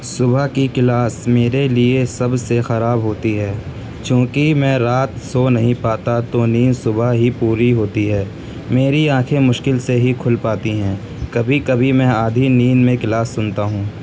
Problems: constant background noise